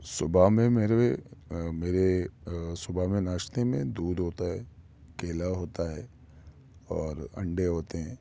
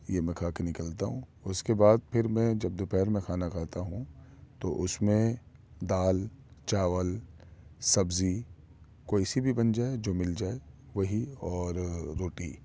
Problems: none marked